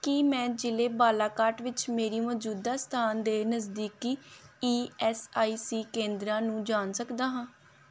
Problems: background sounds at intervals